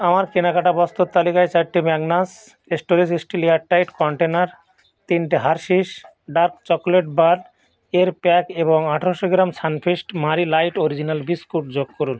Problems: constant background noise